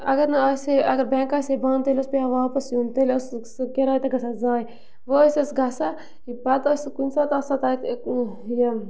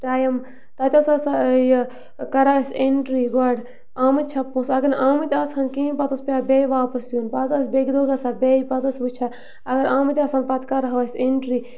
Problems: background sounds at intervals